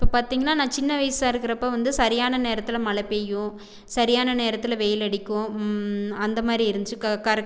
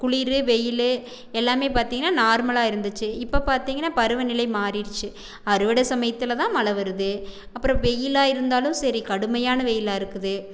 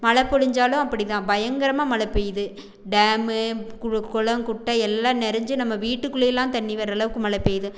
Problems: background sounds at intervals